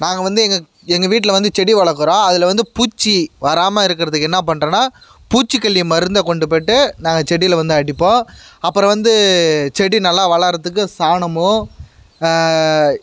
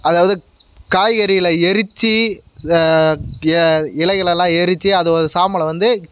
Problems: constant background noise